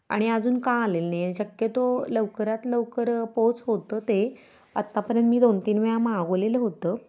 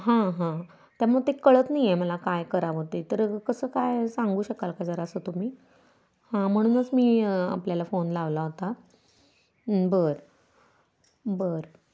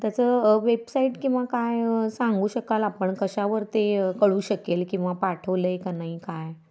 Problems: constant background noise